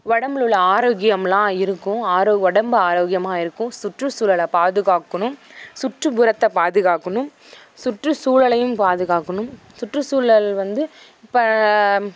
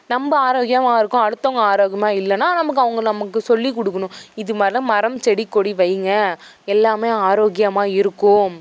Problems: constant background noise